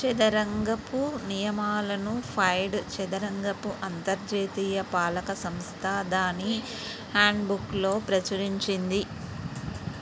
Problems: constant background noise